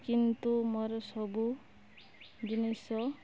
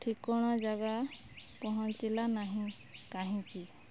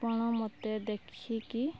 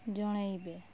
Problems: low volume